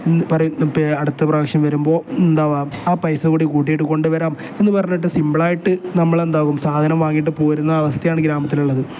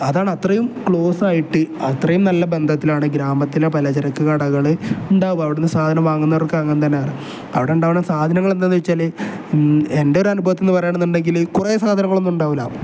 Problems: none marked